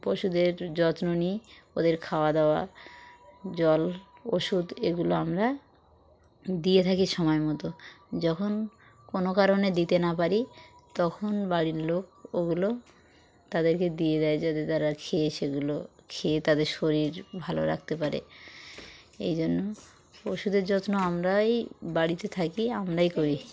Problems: constant background noise, background conversations at intervals